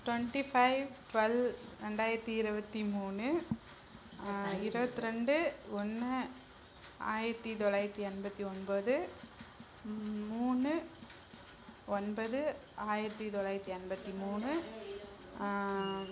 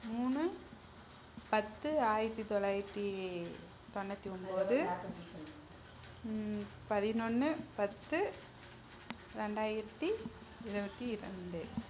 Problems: background sounds at intervals